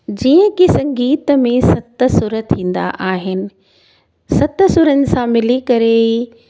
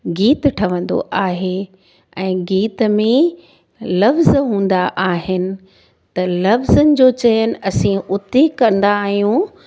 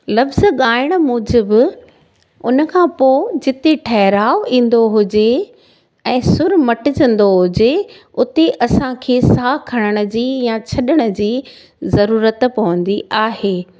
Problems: none marked